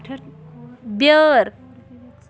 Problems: none marked